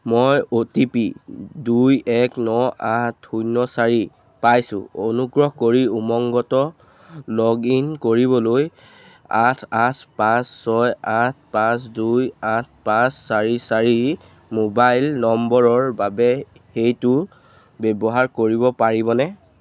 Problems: none marked